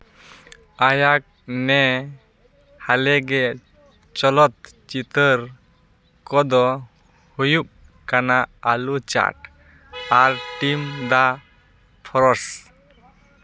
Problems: background sounds at intervals